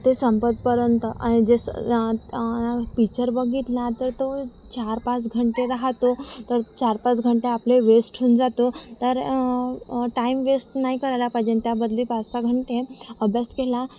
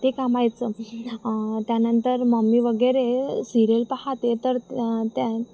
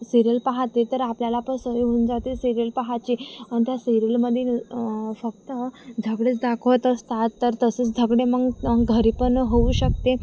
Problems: constant background noise, continuous background conversations